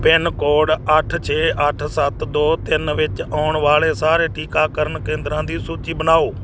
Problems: constant background noise